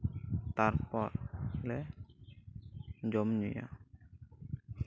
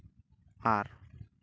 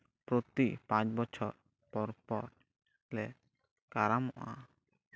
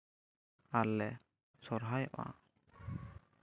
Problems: none marked